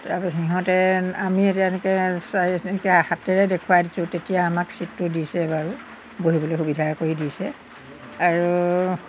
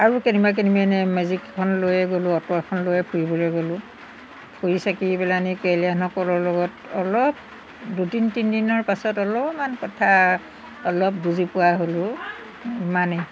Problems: background sounds at intervals